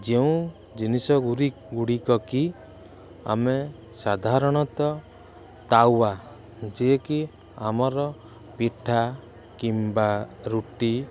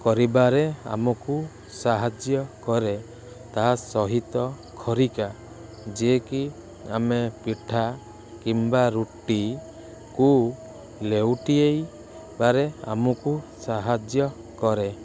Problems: constant background noise